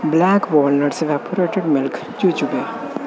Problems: constant background noise